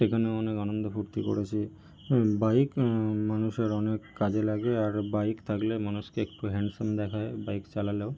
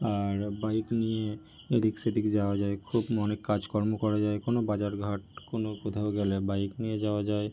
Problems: background sounds at intervals